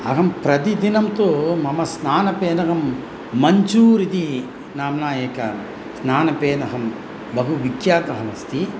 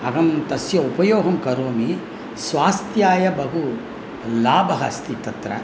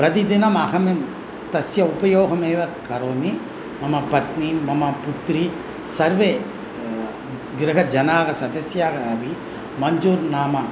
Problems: constant background noise